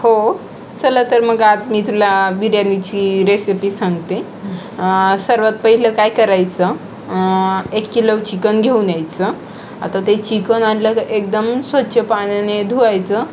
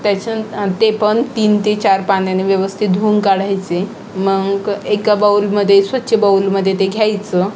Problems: constant background noise, background conversations at intervals